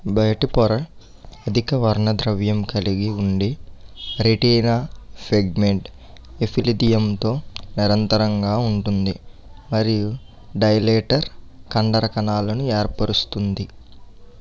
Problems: constant background noise